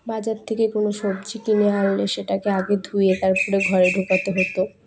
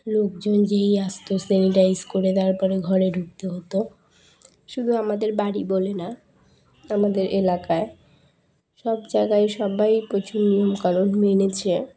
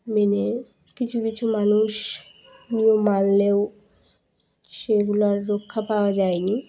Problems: background sounds at intervals